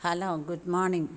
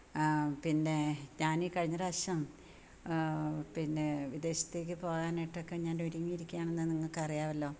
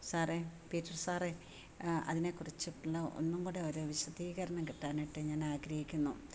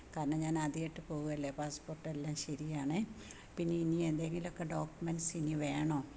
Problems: none marked